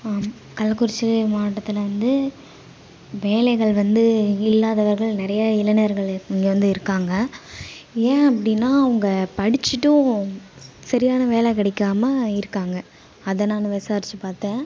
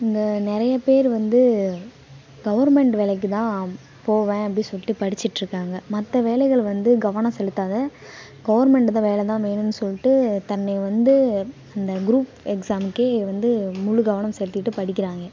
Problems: constant background noise, background conversations at intervals